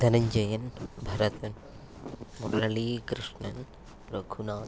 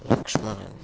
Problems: background conversations at intervals